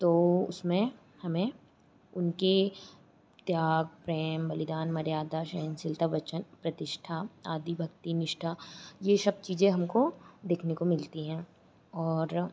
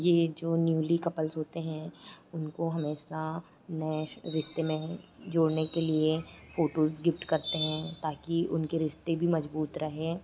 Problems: constant background noise